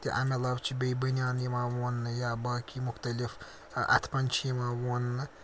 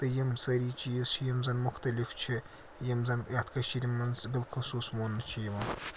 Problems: constant background noise